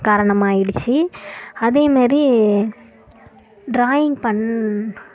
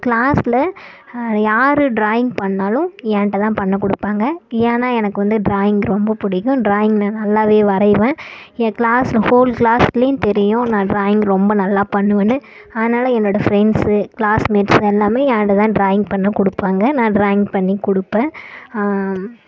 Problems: none marked